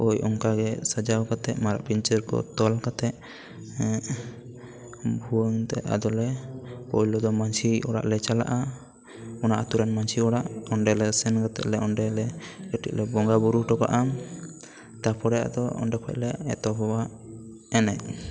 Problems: continuous background conversations